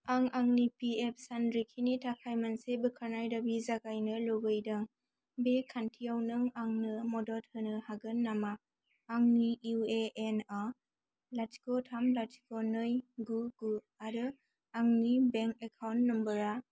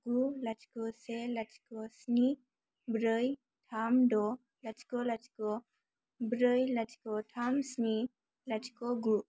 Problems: low volume